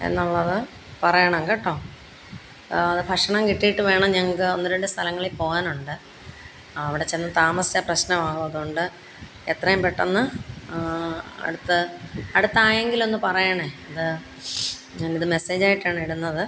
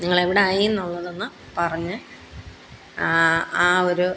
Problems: constant background noise